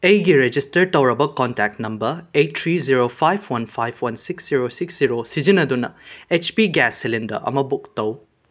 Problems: none marked